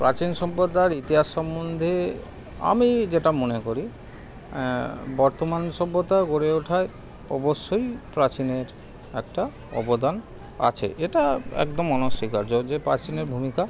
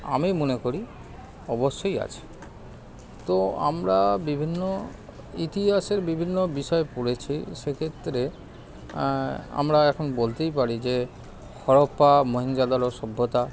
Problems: constant background noise